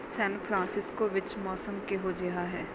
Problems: background sounds at intervals